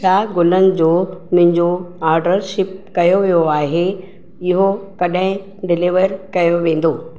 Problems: echo